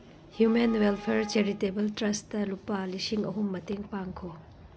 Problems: background sounds at intervals